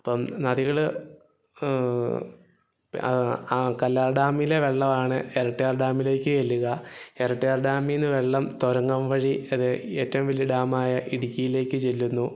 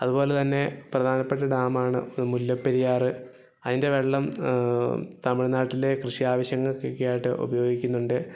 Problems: background sounds at intervals